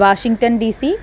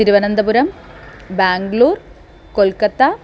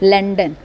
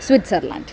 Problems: none marked